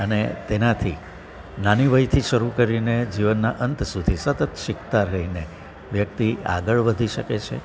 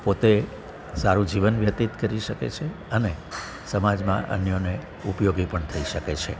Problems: background sounds at intervals, continuous background conversations